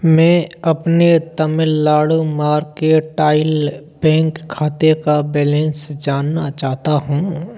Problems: background sounds at intervals